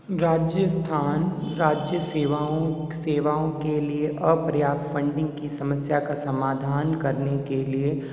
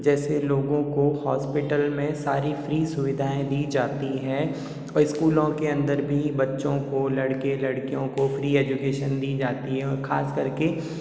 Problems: echo